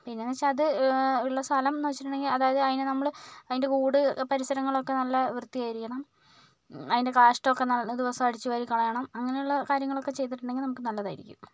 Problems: none marked